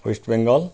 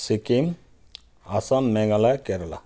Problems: none marked